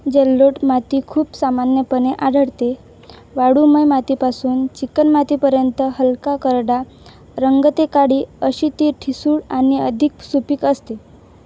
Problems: none marked